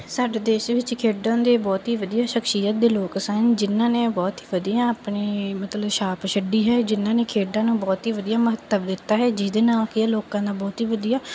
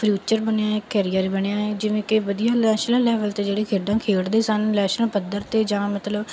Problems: background sounds at intervals